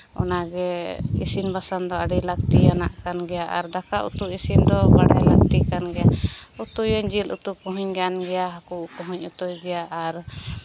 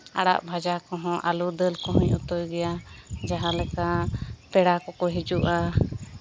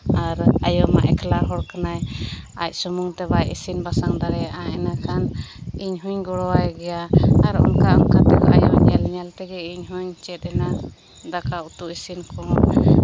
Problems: none marked